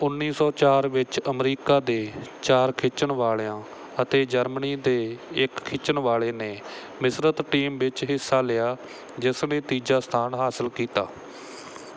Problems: none marked